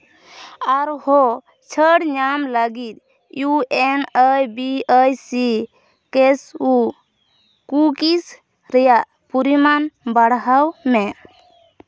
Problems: none marked